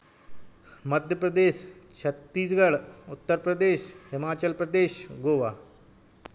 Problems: background sounds at intervals